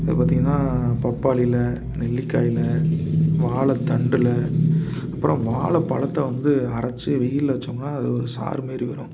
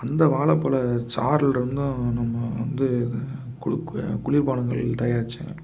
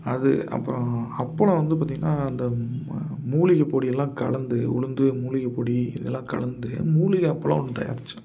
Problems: background sounds at intervals